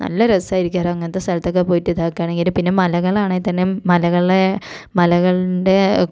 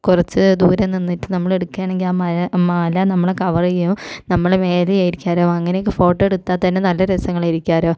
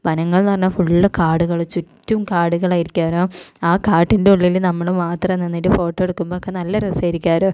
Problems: none marked